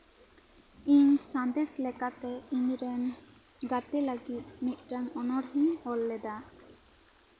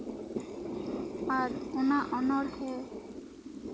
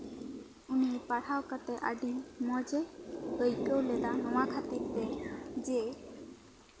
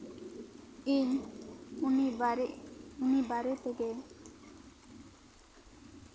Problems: background sounds at intervals